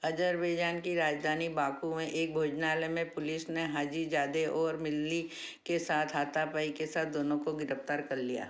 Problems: none marked